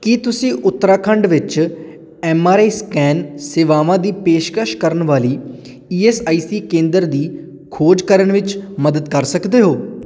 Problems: none marked